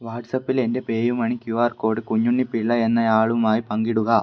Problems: low volume